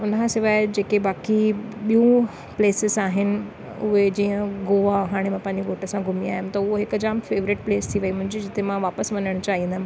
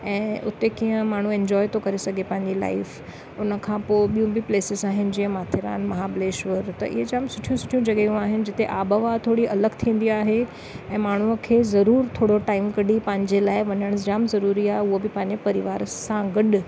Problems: none marked